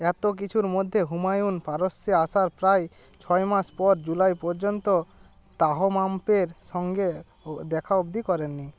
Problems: none marked